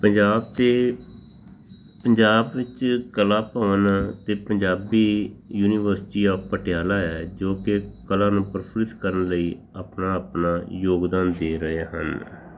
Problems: background sounds at intervals